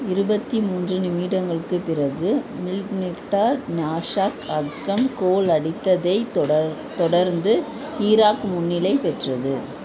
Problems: constant background noise, continuous background conversations